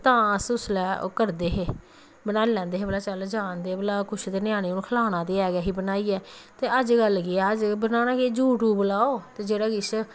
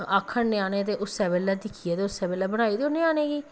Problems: none marked